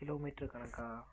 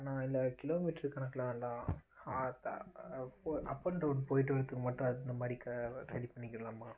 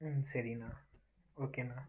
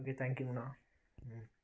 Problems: constant background noise